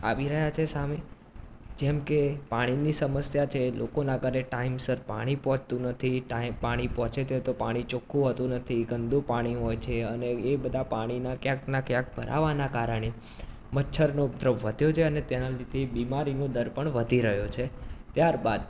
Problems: constant background noise